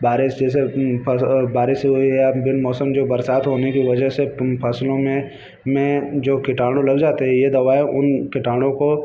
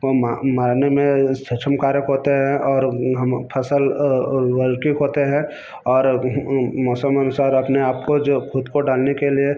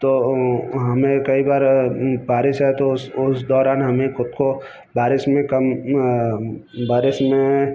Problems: none marked